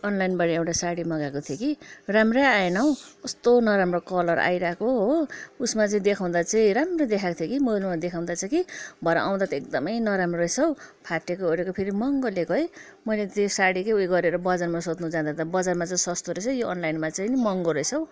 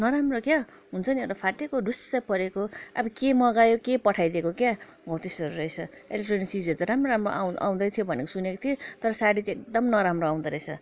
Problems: background conversations at intervals